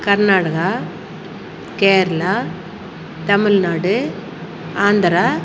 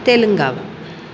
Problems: constant background noise